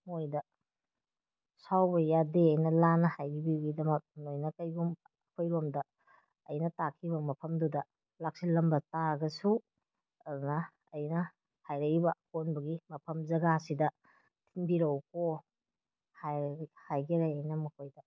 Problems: none marked